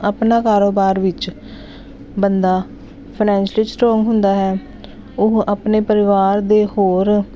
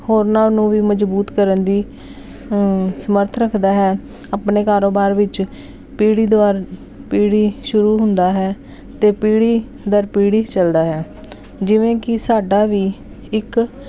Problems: none marked